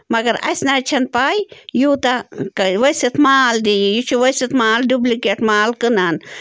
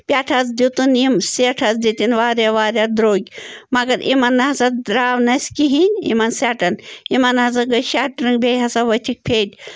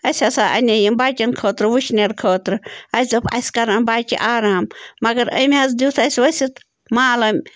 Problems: background sounds at intervals